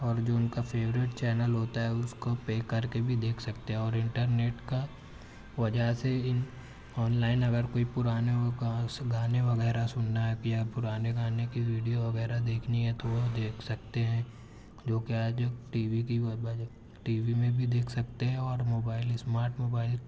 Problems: none marked